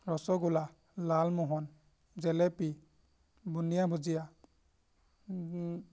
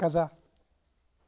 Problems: background sounds at intervals